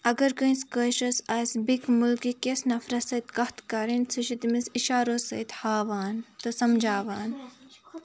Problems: none marked